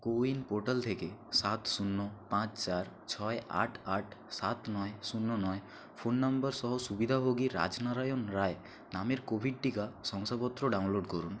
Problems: constant background noise